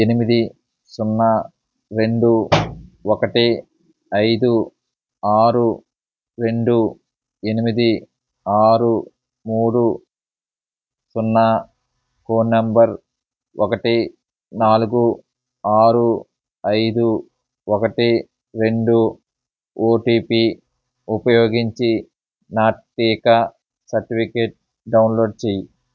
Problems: background sounds at intervals